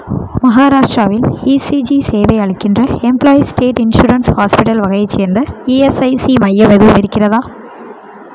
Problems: none marked